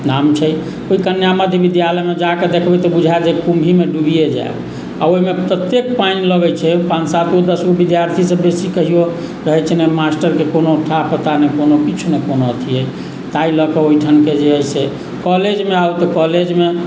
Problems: background sounds at intervals